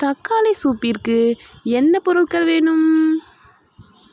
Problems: constant background noise